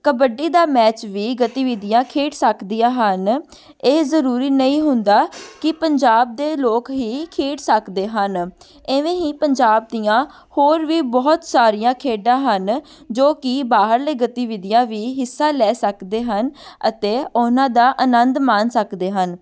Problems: background conversations at intervals